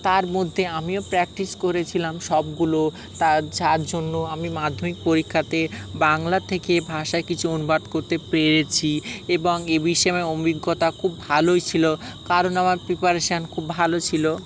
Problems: constant background noise, background conversations at intervals